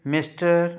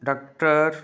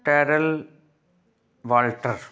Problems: background sounds at intervals